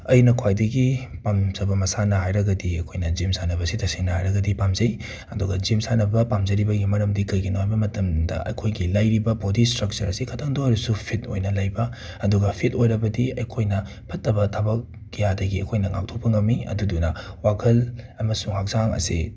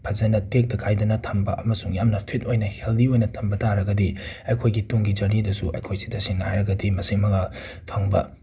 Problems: background sounds at intervals